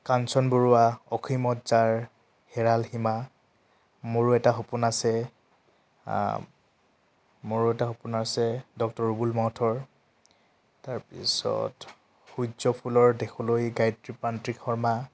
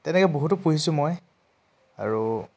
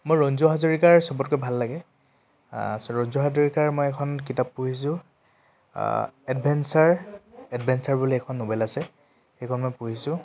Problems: none marked